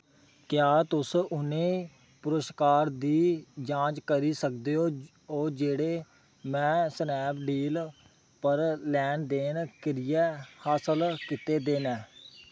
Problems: background sounds at intervals